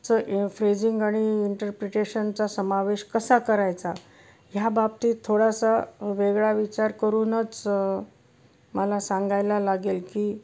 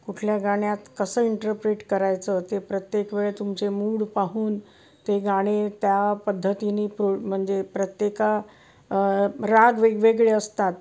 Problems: none marked